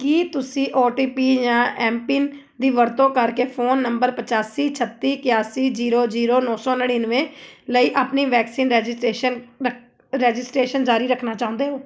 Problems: background conversations at intervals